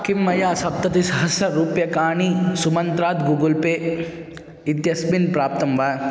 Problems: constant background noise